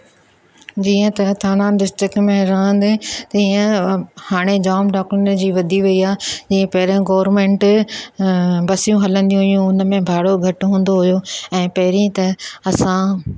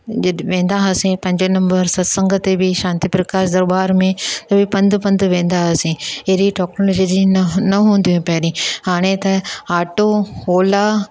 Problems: none marked